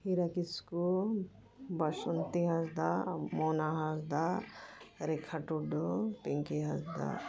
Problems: background sounds at intervals